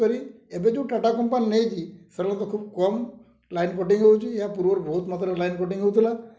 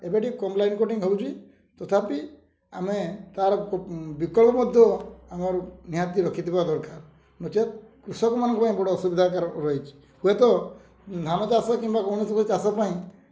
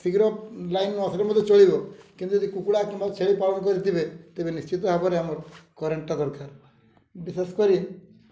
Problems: low volume